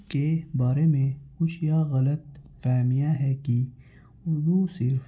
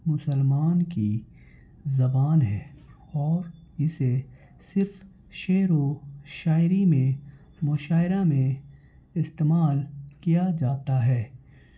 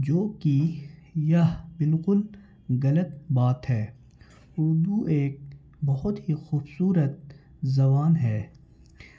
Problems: constant background noise